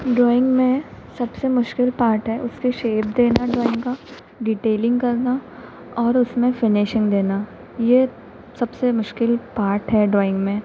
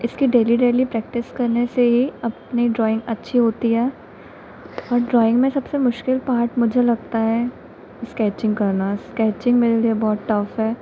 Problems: constant background noise